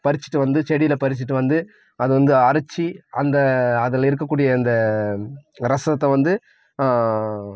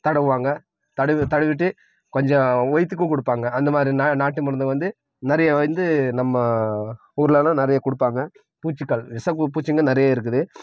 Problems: none marked